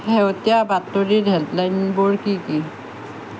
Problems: constant background noise